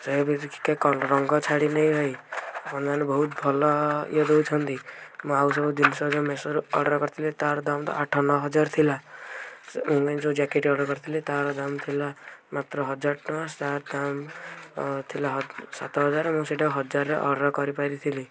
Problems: background sounds at intervals